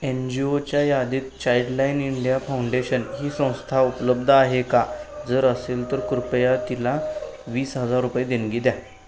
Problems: constant background noise, background conversations at intervals